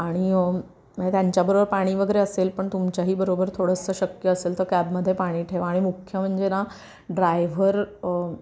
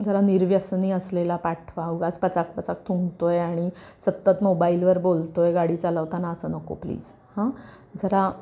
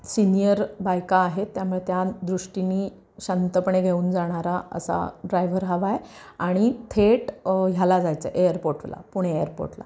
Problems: constant background noise